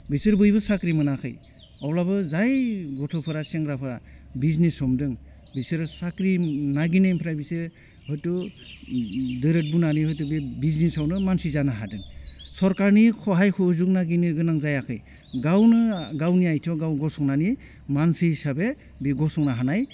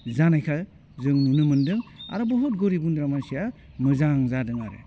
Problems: none marked